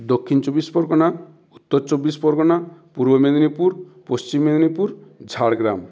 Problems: none marked